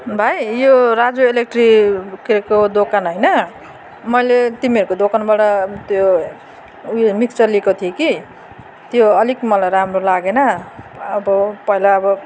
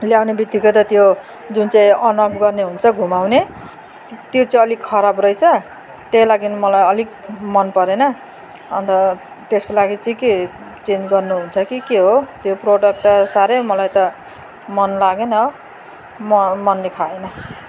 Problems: none marked